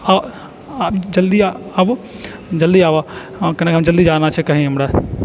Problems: background sounds at intervals